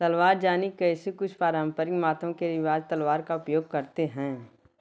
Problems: background sounds at intervals